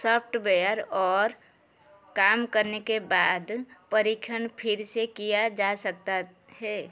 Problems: background sounds at intervals